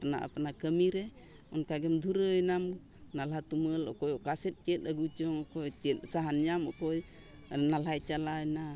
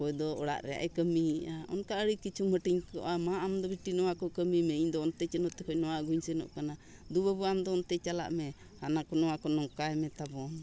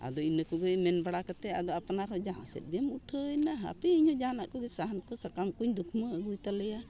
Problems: background conversations at intervals